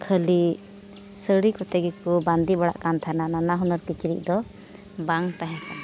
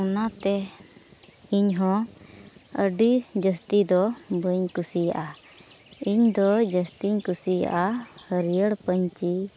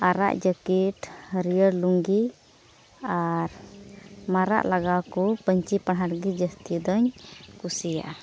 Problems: none marked